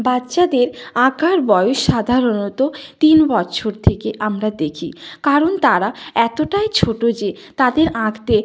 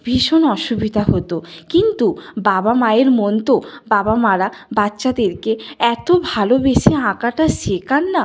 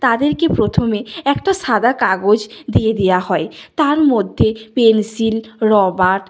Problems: none marked